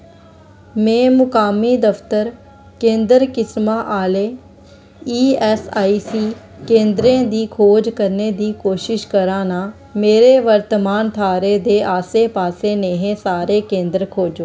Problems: background sounds at intervals